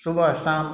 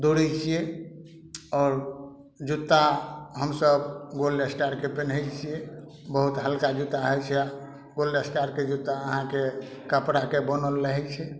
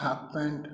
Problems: none marked